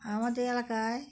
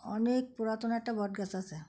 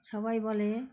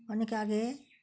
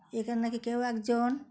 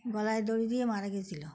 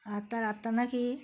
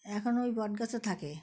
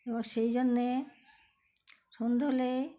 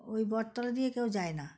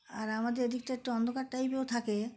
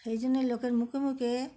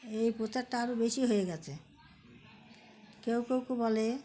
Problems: none marked